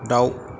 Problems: background sounds at intervals